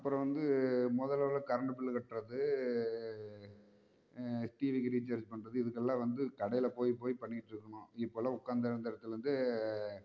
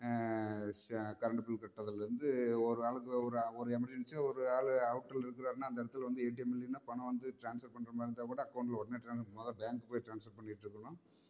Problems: low volume